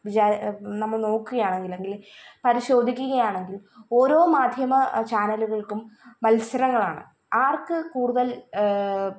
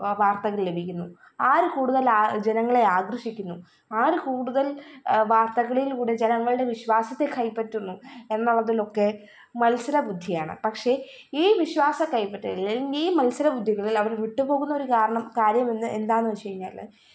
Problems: none marked